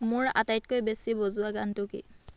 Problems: background conversations at intervals